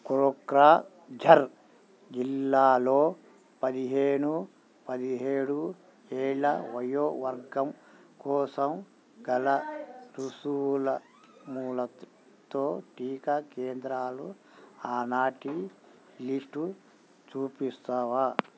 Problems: none marked